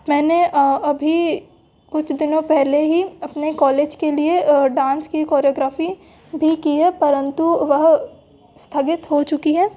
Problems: background sounds at intervals